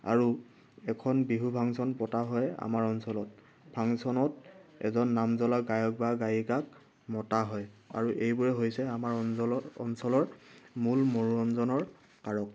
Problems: background sounds at intervals